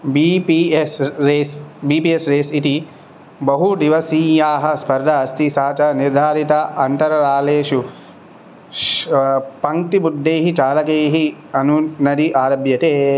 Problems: none marked